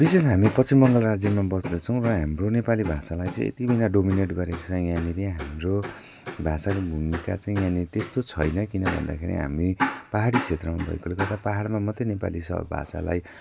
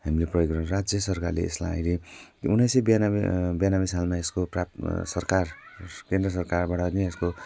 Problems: constant background noise